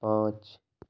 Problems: low volume